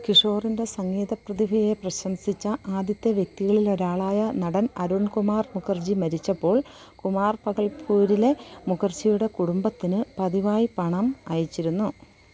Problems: background sounds at intervals